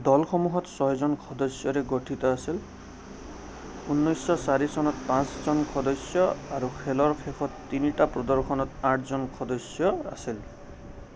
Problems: constant background noise